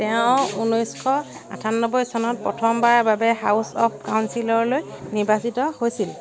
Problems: constant background noise